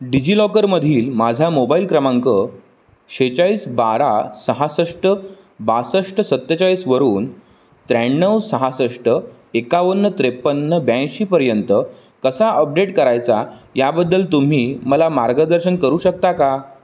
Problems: none marked